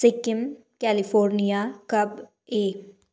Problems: none marked